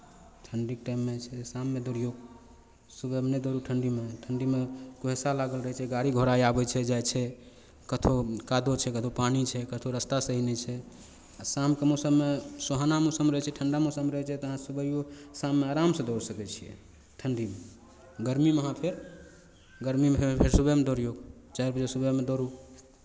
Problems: none marked